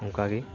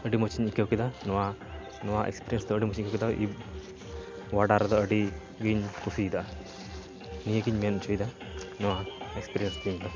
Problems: constant background noise, background conversations at intervals